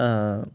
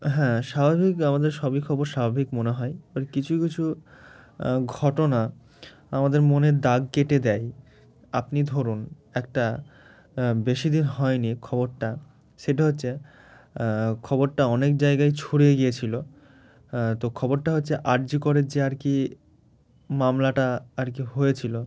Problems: background sounds at intervals